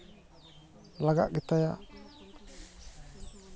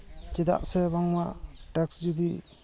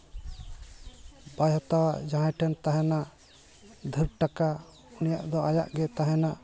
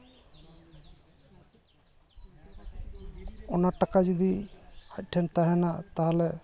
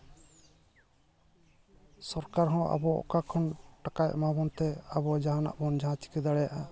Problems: constant background noise, continuous background conversations